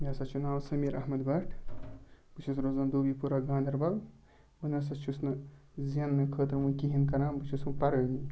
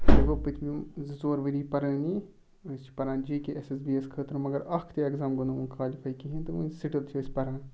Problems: background sounds at intervals